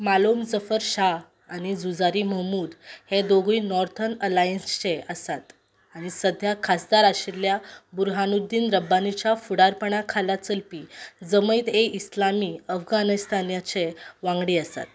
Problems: background sounds at intervals